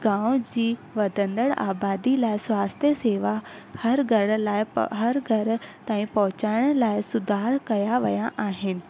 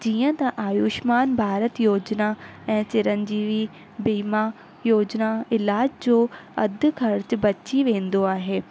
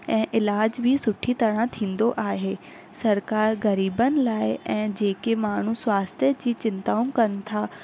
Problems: constant background noise